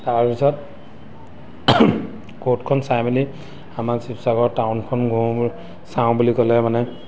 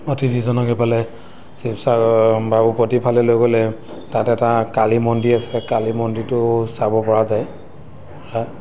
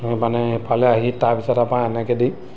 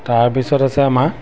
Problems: none marked